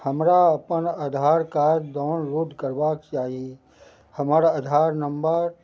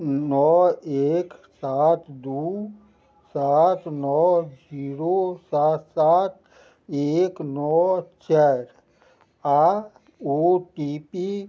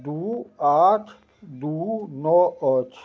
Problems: none marked